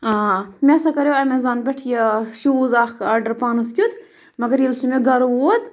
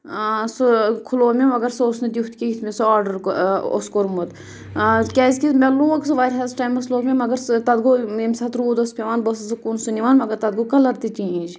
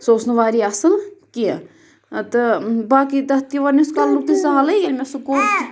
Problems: background sounds at intervals